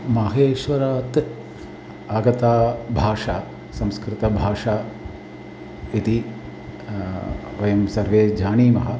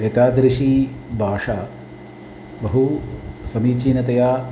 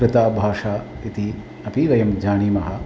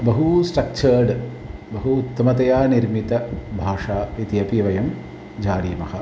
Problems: background sounds at intervals